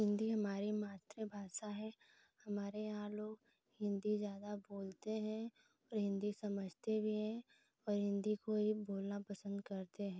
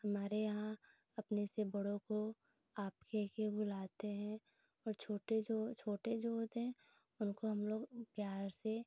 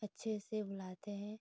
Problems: constant background noise